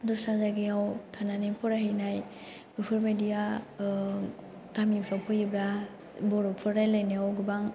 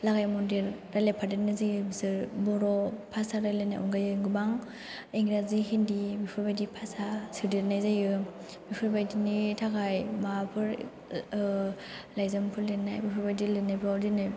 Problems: none marked